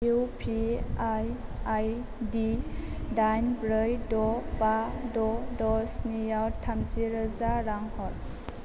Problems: none marked